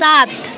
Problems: constant background noise